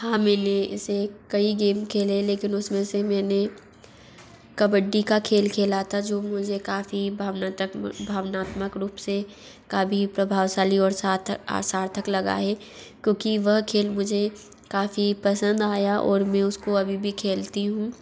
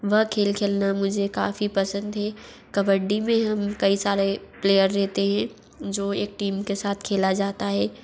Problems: constant background noise